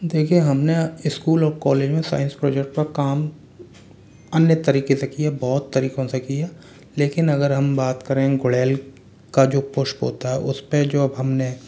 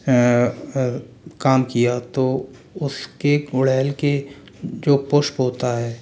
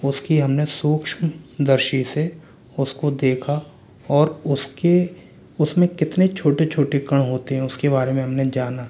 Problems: none marked